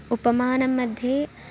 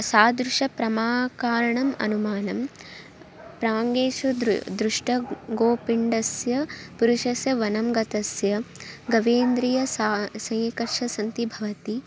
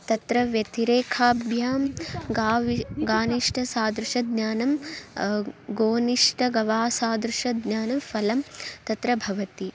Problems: constant background noise